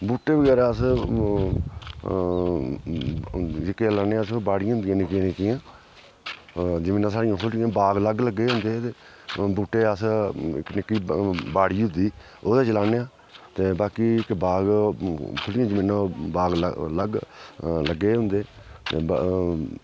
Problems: background sounds at intervals, background conversations at intervals